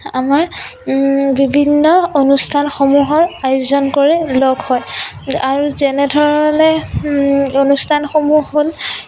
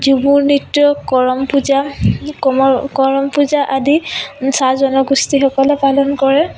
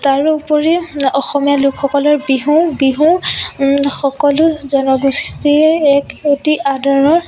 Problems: background sounds at intervals